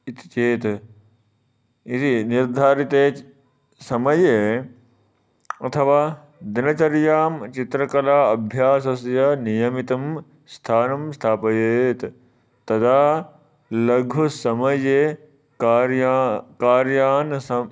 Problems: none marked